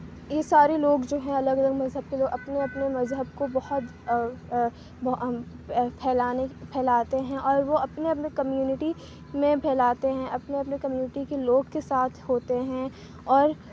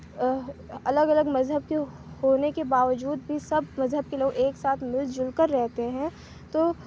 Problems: none marked